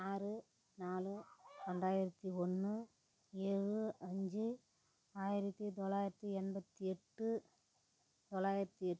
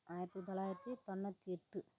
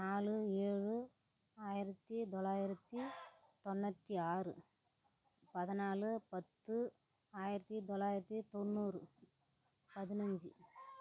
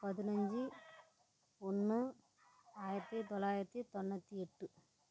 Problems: constant background noise, low volume